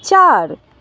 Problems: constant background noise